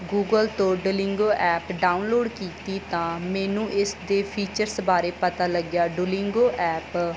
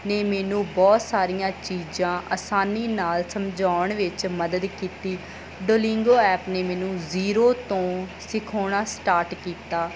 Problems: none marked